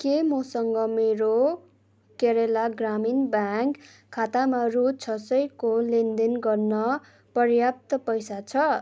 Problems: none marked